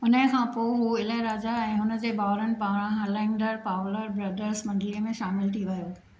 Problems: none marked